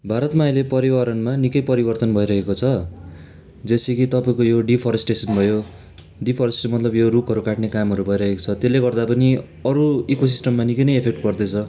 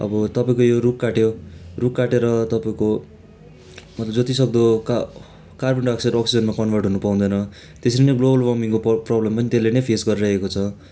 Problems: none marked